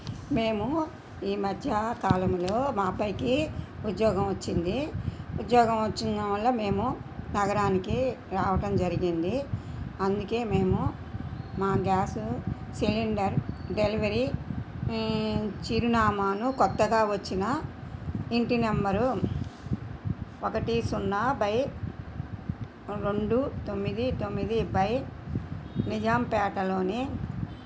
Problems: background sounds at intervals